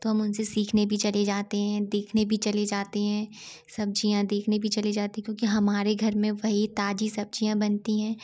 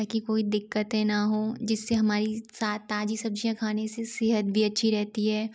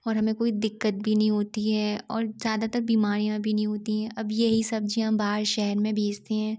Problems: background sounds at intervals